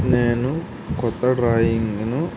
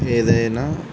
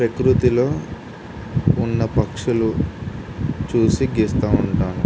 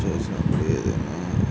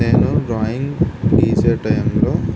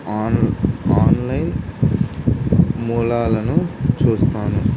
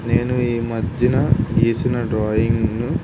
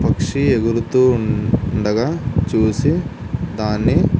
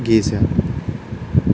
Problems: constant background noise